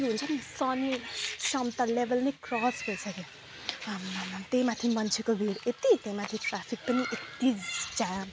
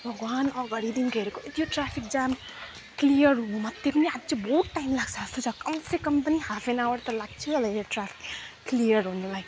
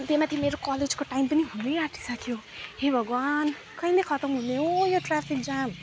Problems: none marked